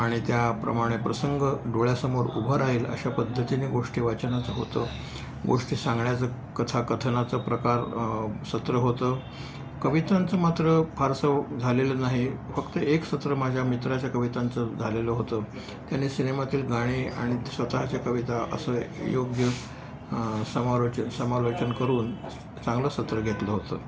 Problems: constant background noise